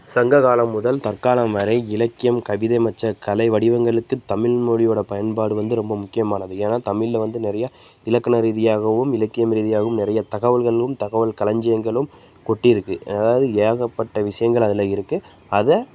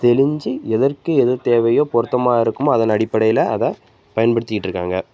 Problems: constant background noise